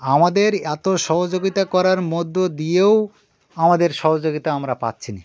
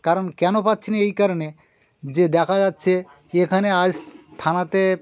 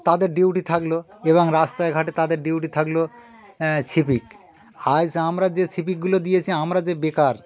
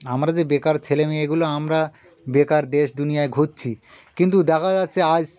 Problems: constant background noise, continuous background conversations